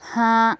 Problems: constant background noise